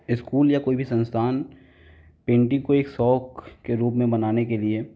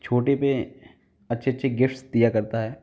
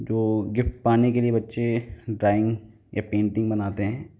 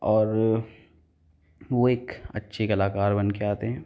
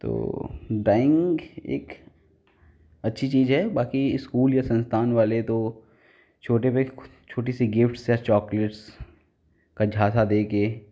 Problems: none marked